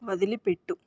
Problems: none marked